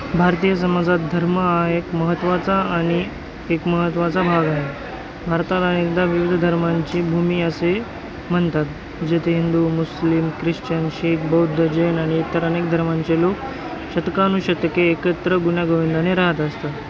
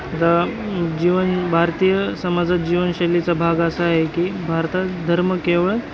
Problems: constant background noise, continuous background conversations